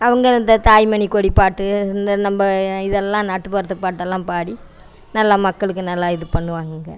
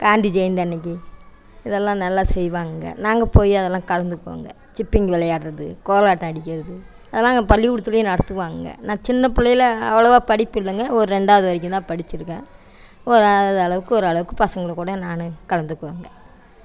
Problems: background sounds at intervals, background conversations at intervals